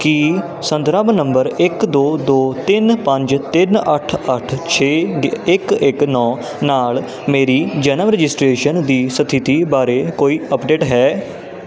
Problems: constant background noise